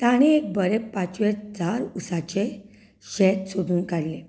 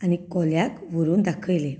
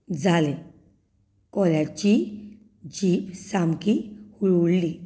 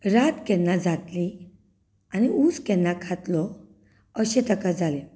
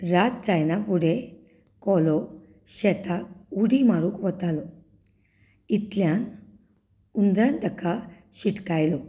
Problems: continuous background conversations